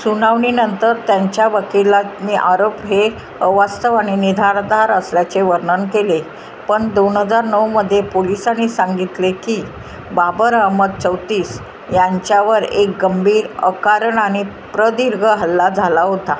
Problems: constant background noise